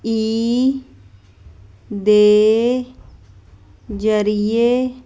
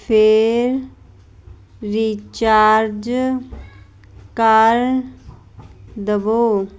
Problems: constant background noise